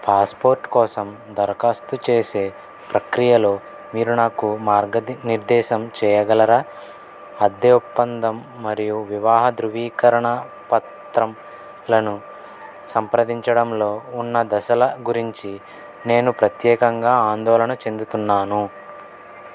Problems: constant background noise